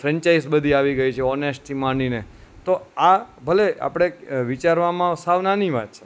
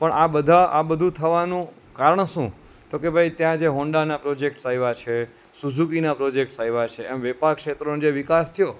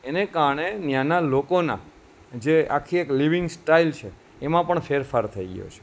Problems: none marked